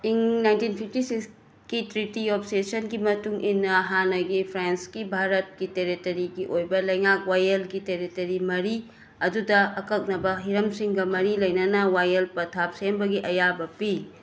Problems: constant background noise